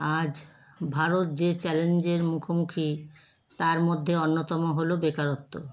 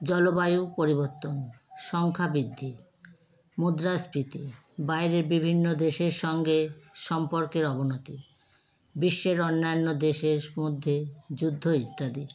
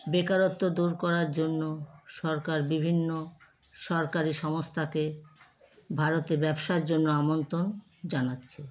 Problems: constant background noise